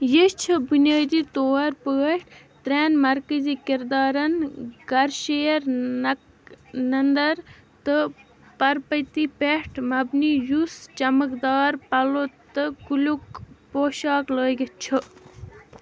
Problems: constant background noise